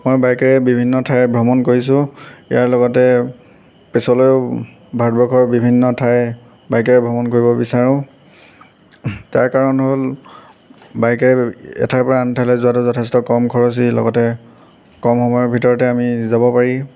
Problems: background sounds at intervals